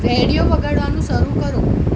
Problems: constant background noise